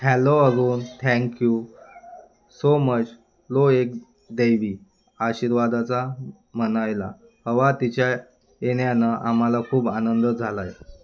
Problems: background sounds at intervals